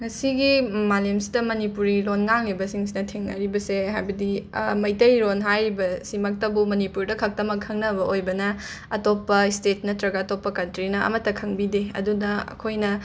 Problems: background sounds at intervals